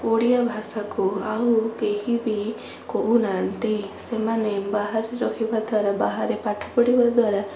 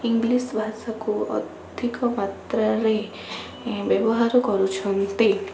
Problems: constant background noise